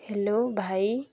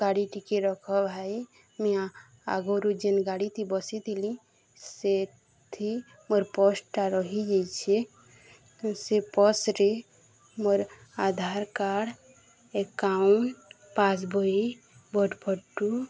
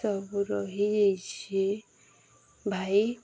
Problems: constant background noise, continuous background conversations